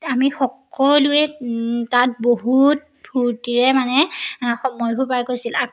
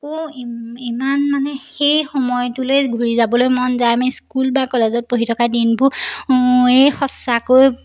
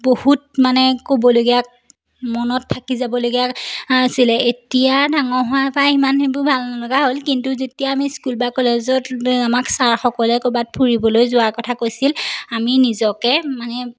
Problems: none marked